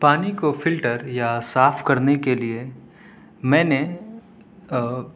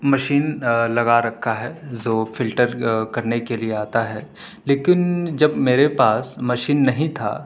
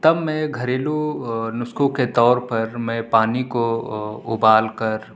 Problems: none marked